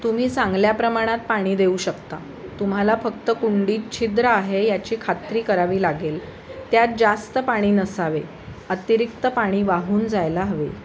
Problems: constant background noise